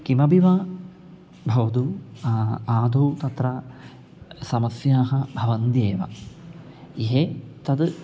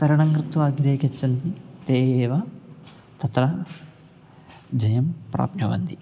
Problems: none marked